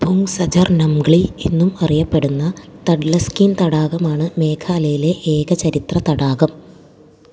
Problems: low volume